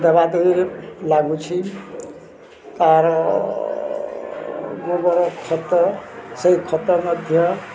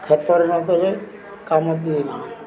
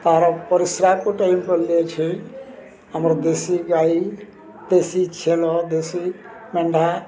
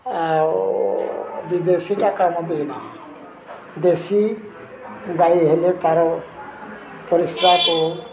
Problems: constant background noise, continuous background conversations